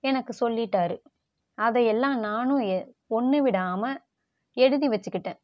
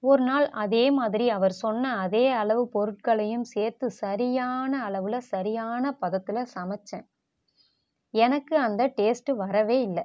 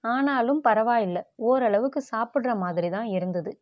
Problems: none marked